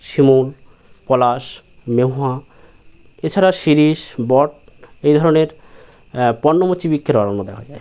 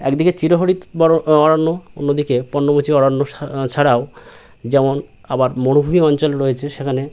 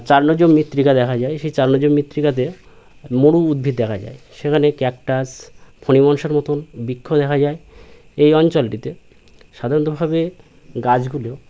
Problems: none marked